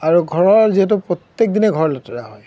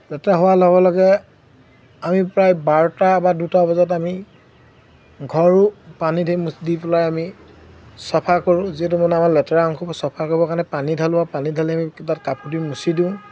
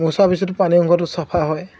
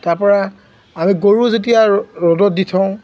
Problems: constant background noise